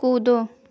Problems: constant background noise